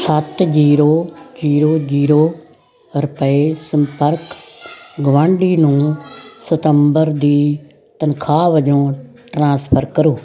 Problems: constant background noise, background conversations at intervals